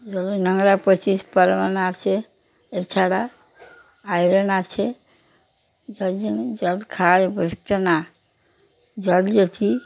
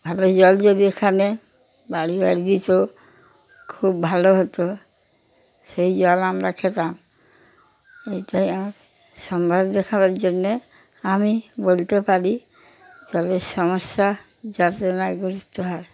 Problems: constant background noise